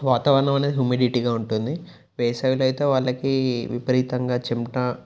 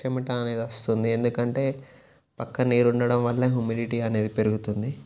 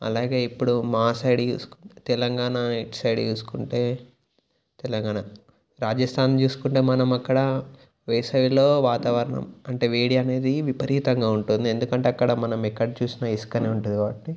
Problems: none marked